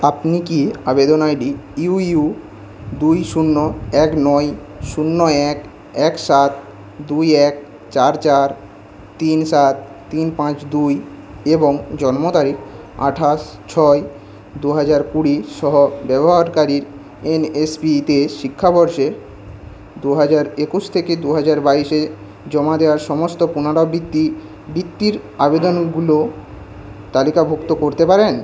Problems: constant background noise